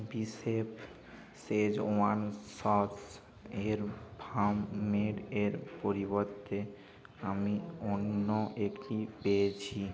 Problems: constant background noise